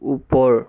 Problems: constant background noise, continuous background conversations